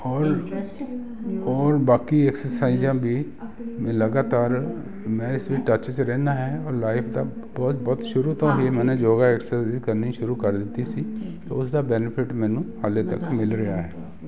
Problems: none marked